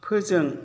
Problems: constant background noise